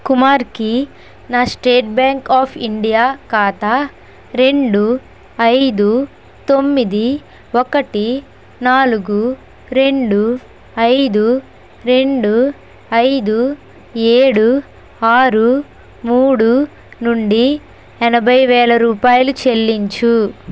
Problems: constant background noise